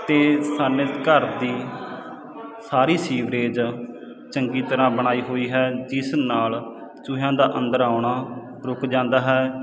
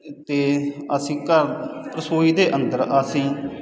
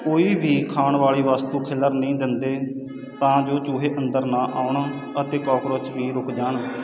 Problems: constant background noise